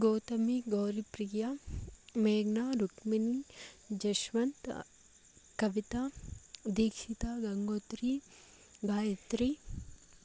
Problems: constant background noise, low volume